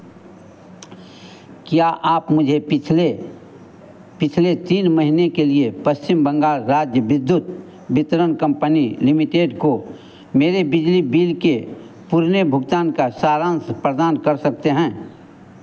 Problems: constant background noise